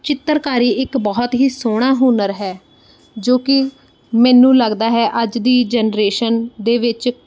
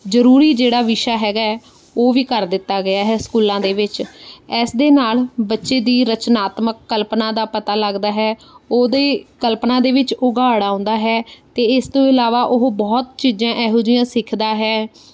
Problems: background sounds at intervals